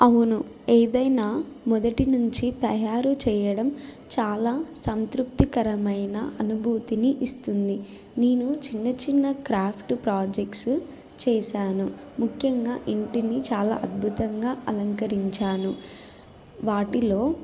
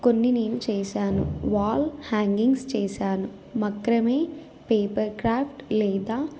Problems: constant background noise